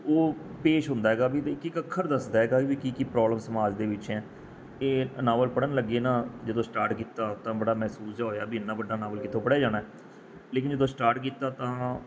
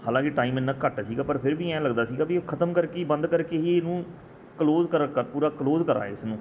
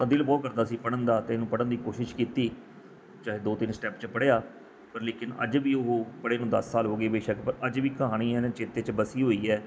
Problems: background sounds at intervals